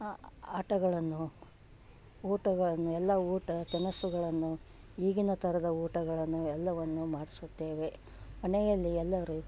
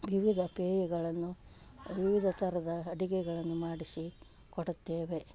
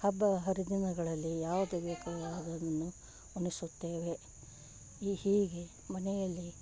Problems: background sounds at intervals